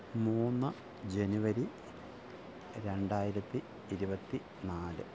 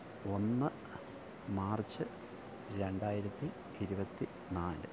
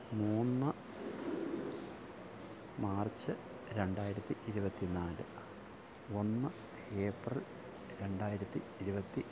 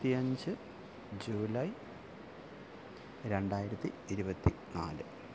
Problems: low volume